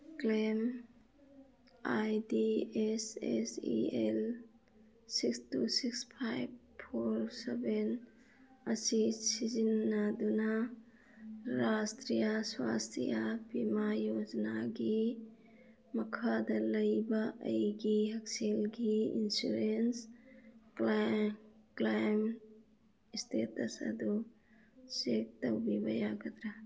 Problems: background conversations at intervals